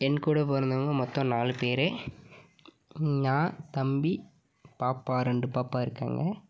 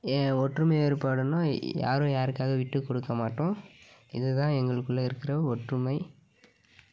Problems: background sounds at intervals